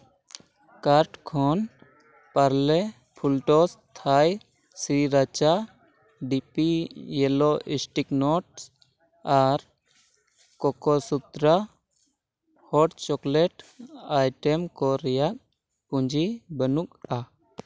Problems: none marked